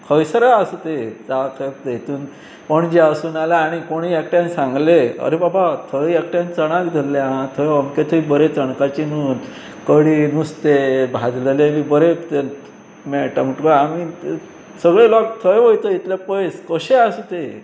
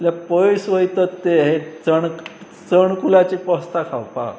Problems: constant background noise